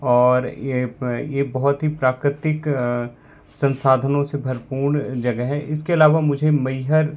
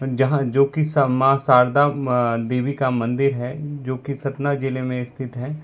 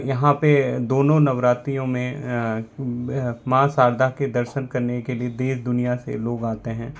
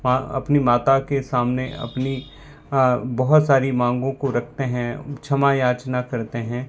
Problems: constant background noise